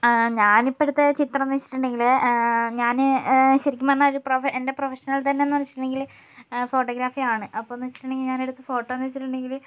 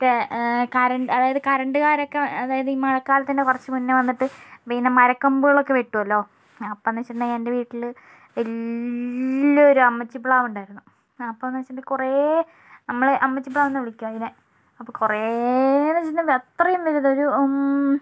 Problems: none marked